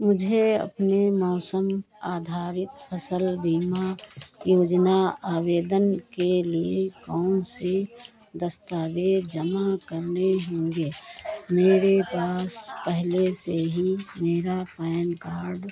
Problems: none marked